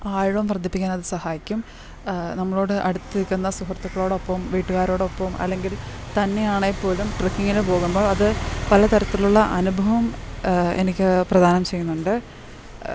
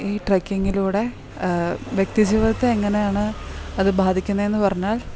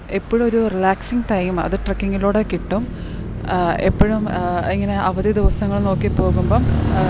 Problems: background sounds at intervals